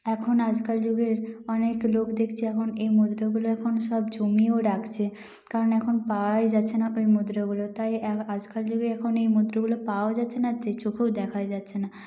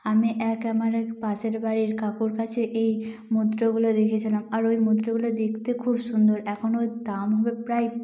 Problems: echo